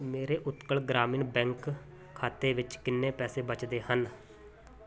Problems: continuous background conversations